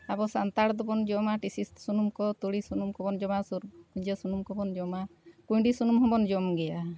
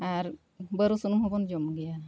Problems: none marked